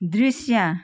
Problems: background conversations at intervals